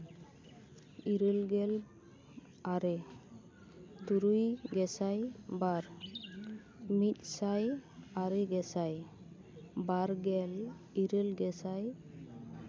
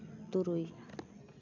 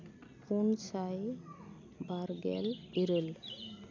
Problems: none marked